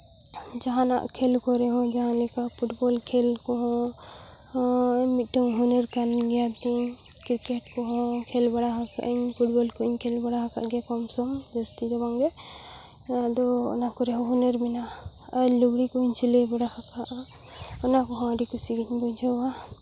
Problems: none marked